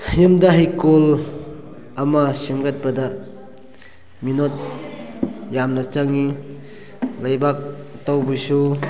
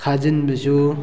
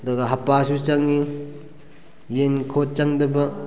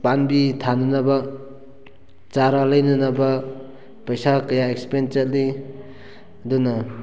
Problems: background sounds at intervals, background conversations at intervals